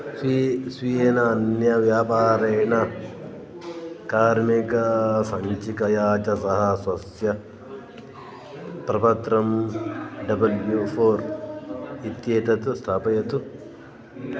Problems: background sounds at intervals